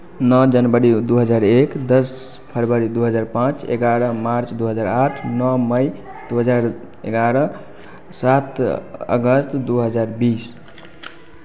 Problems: constant background noise, background conversations at intervals